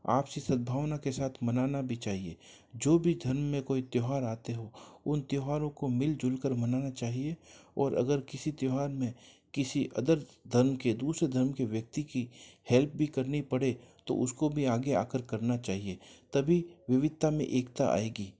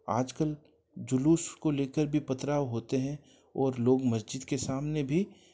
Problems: none marked